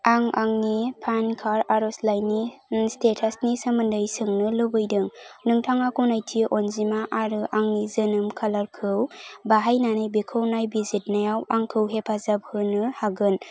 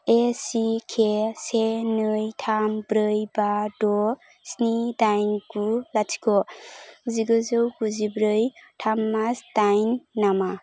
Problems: constant background noise